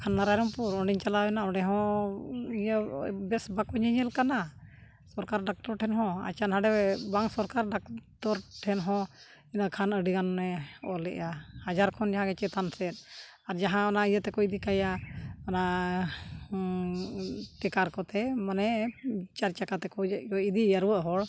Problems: none marked